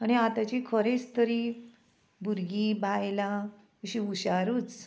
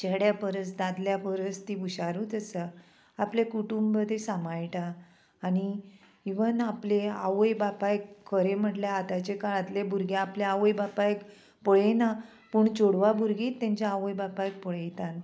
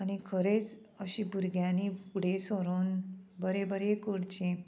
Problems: constant background noise